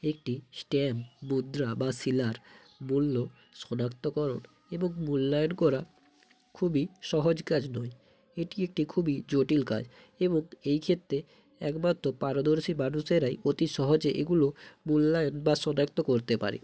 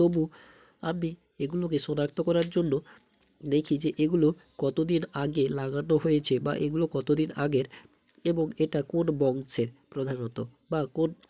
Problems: background sounds at intervals